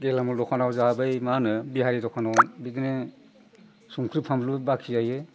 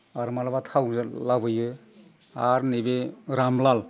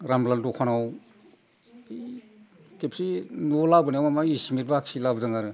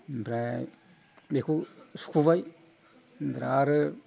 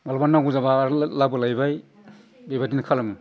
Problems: constant background noise